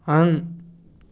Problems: none marked